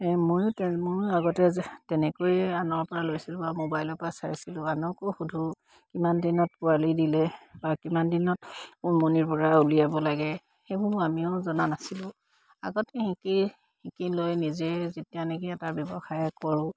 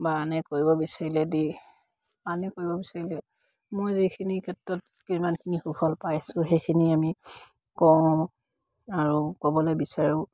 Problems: background sounds at intervals